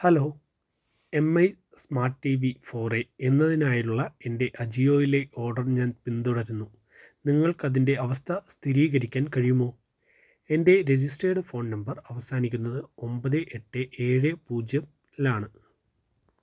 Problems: low volume